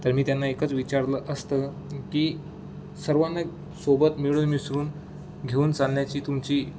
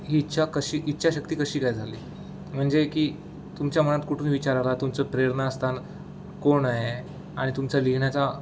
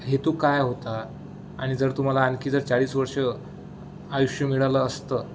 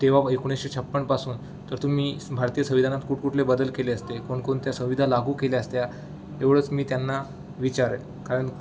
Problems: none marked